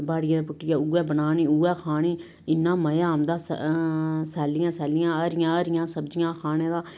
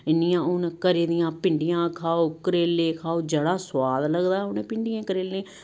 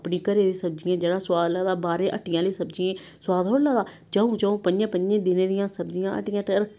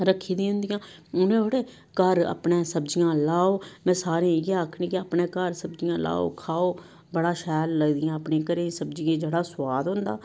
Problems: none marked